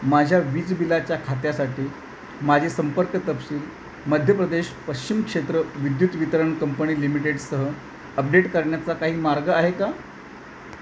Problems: none marked